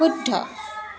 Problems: continuous background conversations